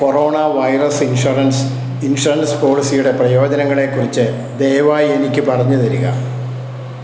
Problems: constant background noise